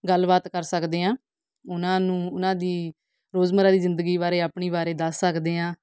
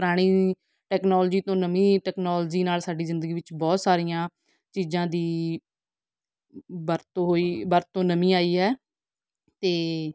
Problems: background sounds at intervals